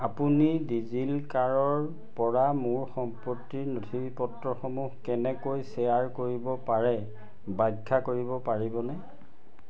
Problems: constant background noise, background conversations at intervals